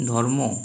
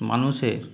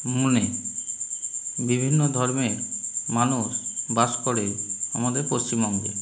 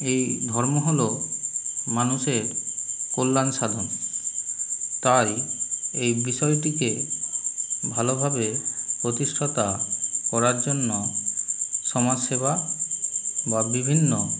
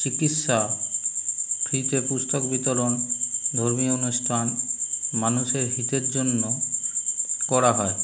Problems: none marked